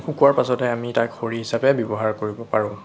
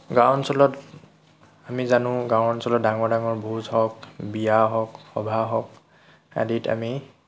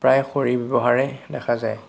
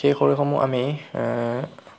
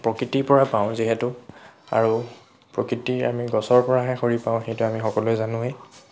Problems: none marked